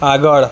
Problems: constant background noise